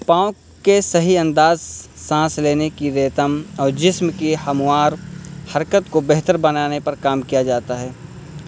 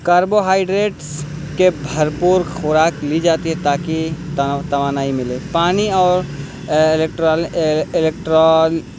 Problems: constant background noise